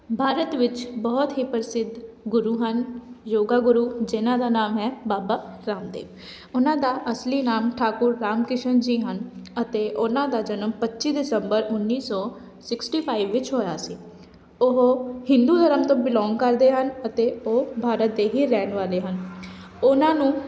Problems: none marked